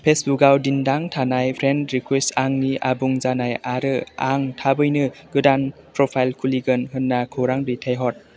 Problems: none marked